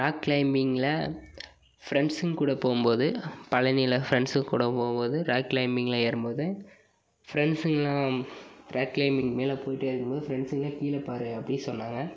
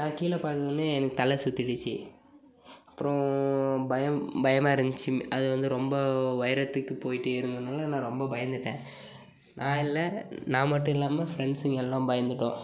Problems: background sounds at intervals